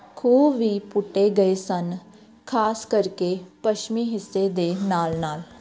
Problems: background sounds at intervals